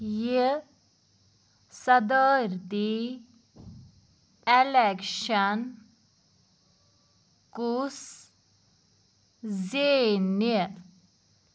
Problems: background sounds at intervals